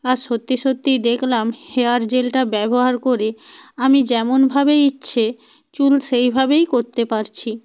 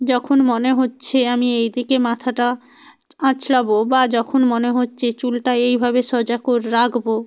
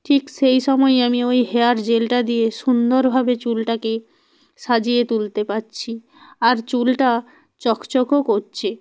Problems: none marked